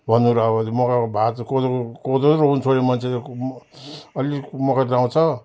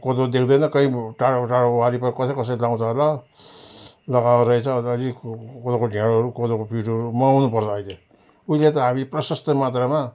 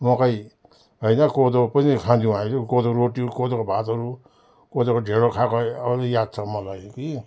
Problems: none marked